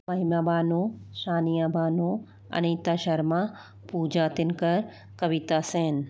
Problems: constant background noise